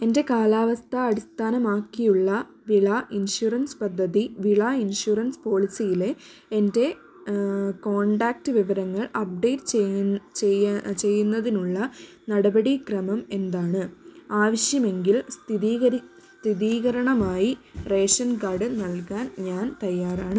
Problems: none marked